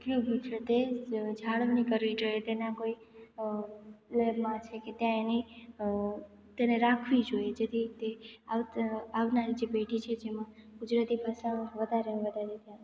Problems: background sounds at intervals, echo